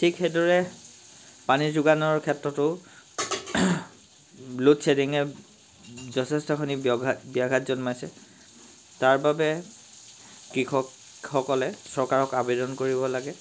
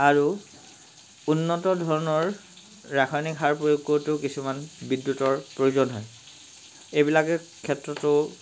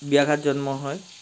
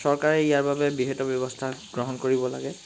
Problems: constant background noise